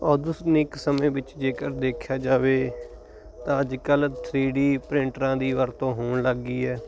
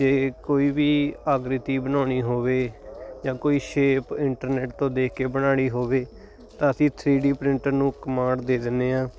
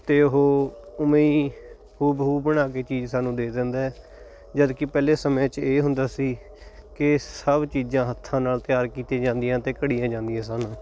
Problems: background sounds at intervals